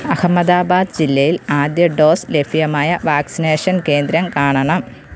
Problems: constant background noise